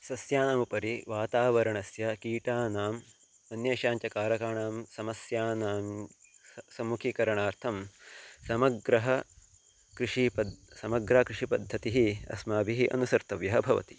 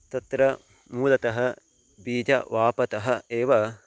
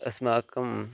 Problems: constant background noise